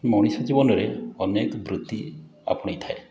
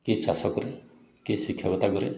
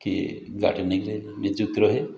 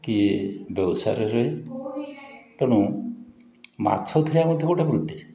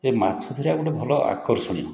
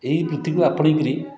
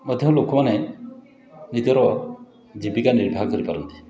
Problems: background conversations at intervals